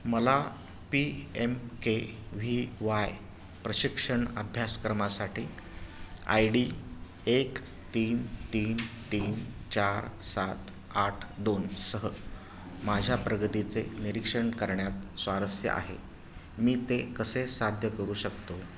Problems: none marked